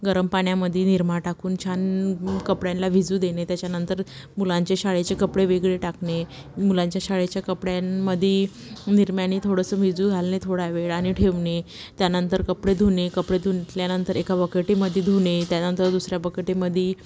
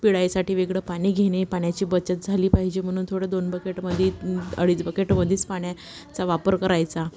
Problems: background sounds at intervals